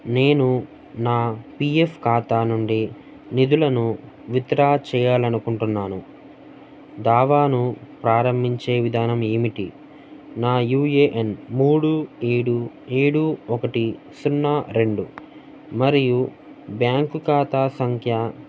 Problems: none marked